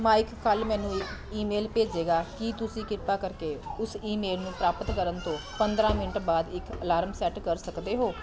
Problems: constant background noise